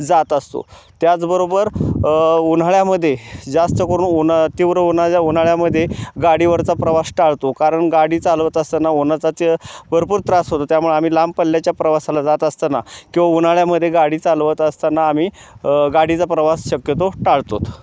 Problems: constant background noise